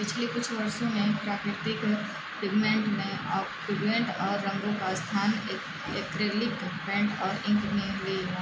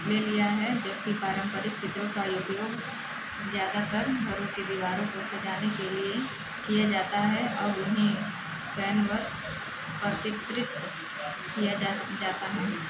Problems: constant background noise, continuous background conversations